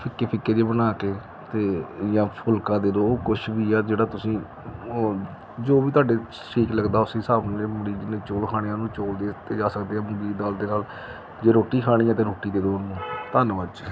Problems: background sounds at intervals